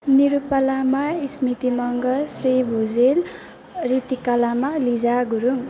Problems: background sounds at intervals